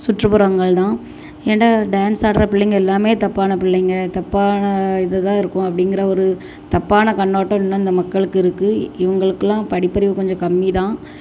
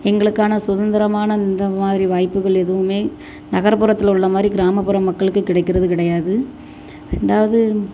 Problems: constant background noise